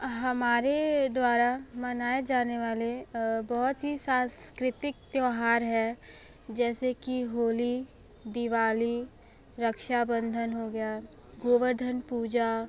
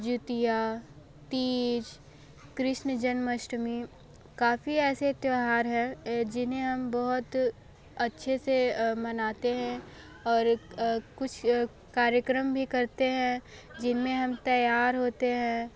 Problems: background sounds at intervals, background conversations at intervals